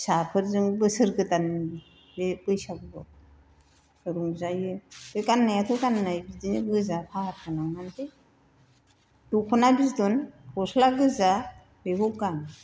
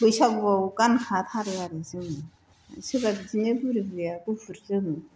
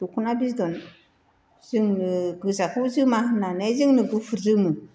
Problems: constant background noise